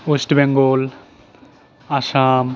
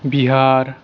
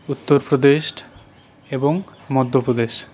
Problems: none marked